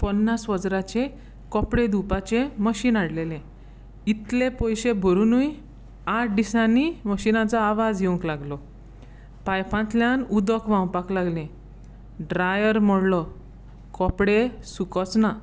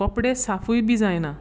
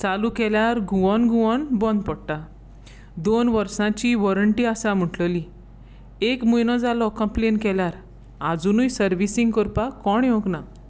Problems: background sounds at intervals